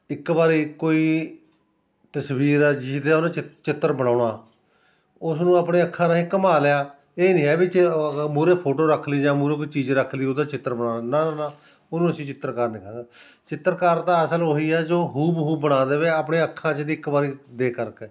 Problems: continuous background conversations